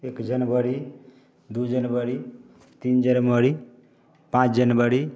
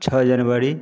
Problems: none marked